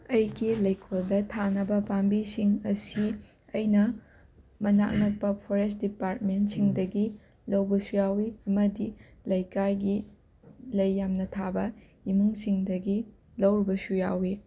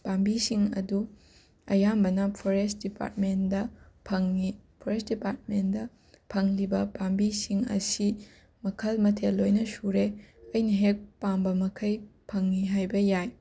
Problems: background sounds at intervals, background conversations at intervals